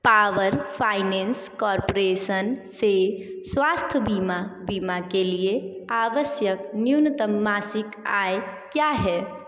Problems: echo